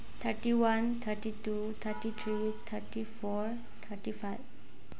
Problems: background sounds at intervals